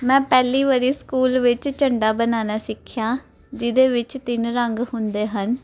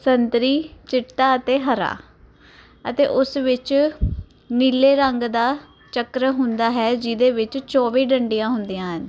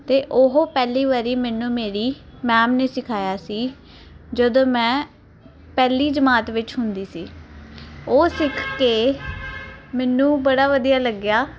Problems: constant background noise